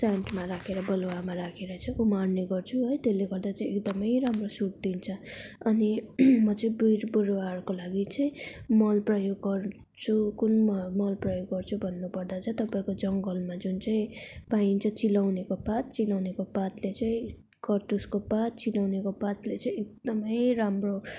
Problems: background sounds at intervals